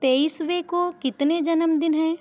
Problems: echo